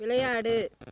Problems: constant background noise